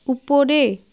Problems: constant background noise